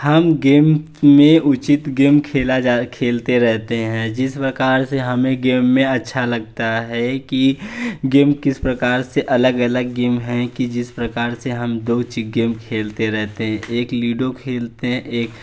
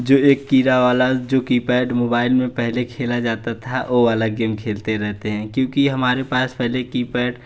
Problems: none marked